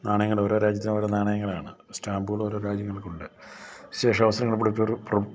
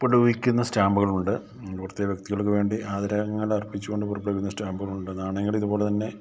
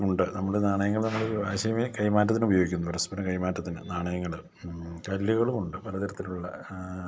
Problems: low volume